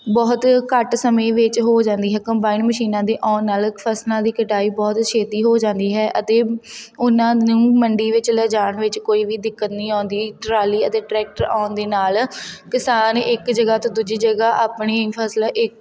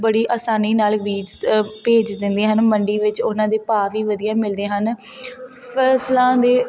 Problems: constant background noise